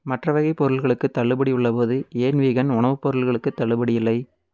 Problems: none marked